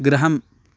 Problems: none marked